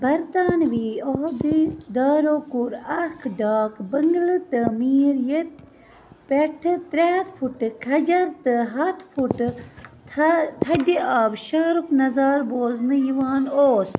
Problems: constant background noise, background conversations at intervals